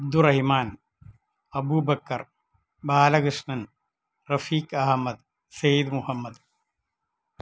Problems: low volume